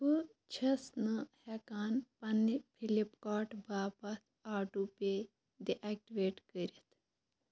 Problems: background sounds at intervals